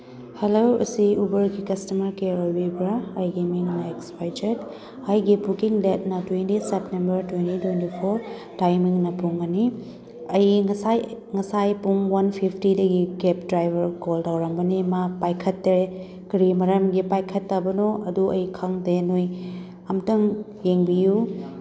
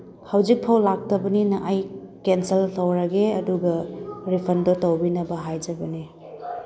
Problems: background sounds at intervals, background conversations at intervals